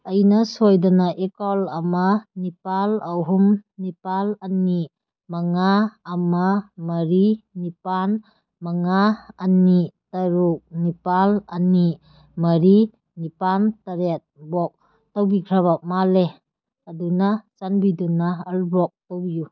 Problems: none marked